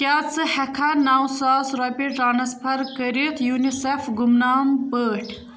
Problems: background sounds at intervals, background conversations at intervals